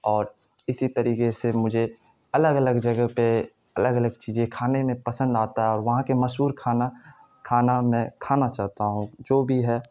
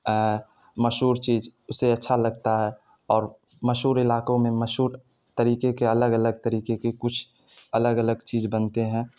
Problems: constant background noise